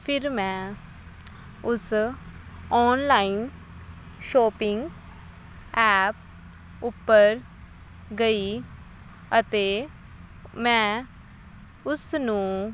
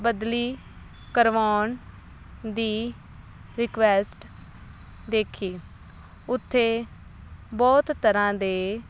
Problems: none marked